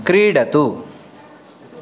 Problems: background sounds at intervals